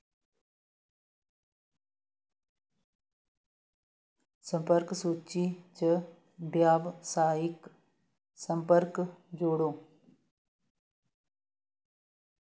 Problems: background sounds at intervals